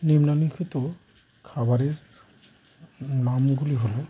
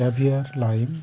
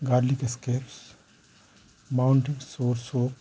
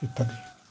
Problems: constant background noise